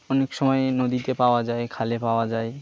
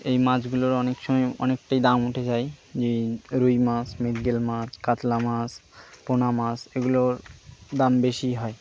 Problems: constant background noise